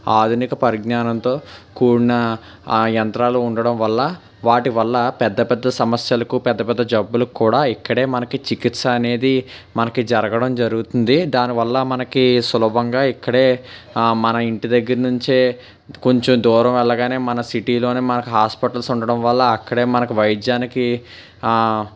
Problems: constant background noise